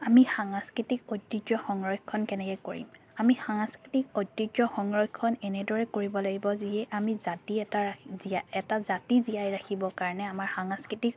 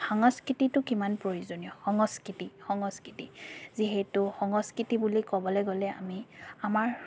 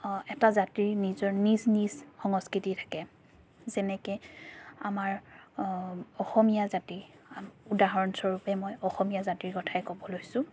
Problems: background sounds at intervals